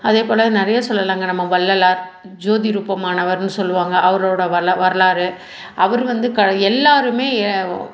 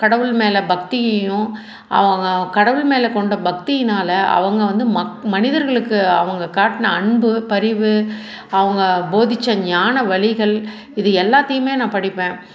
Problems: none marked